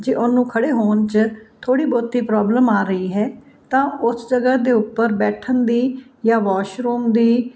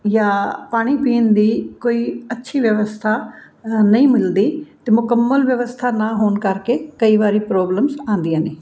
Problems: background sounds at intervals